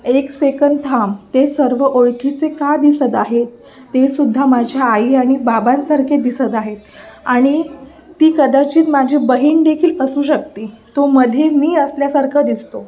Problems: constant background noise, continuous background conversations